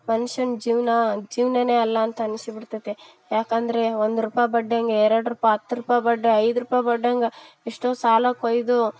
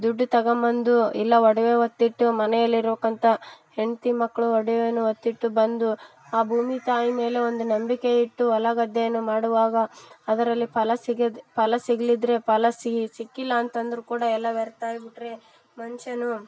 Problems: background sounds at intervals